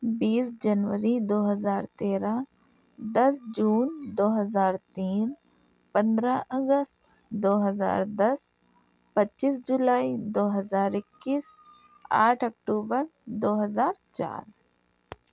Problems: none marked